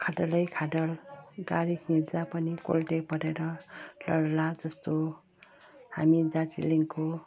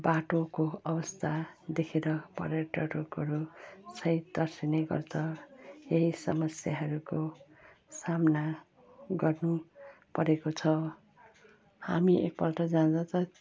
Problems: constant background noise